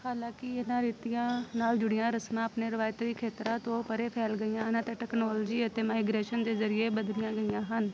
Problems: constant background noise